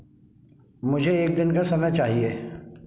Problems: constant background noise